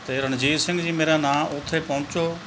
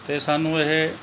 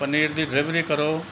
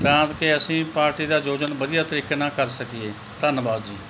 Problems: background sounds at intervals